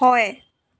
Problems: constant background noise